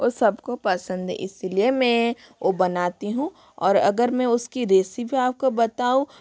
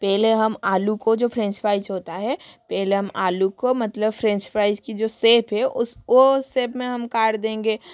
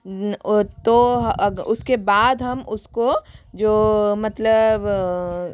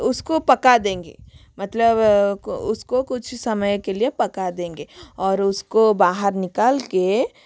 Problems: constant background noise